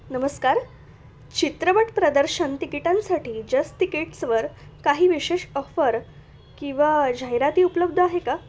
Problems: constant background noise, continuous background conversations